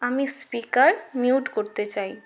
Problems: none marked